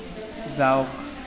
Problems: constant background noise